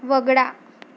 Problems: none marked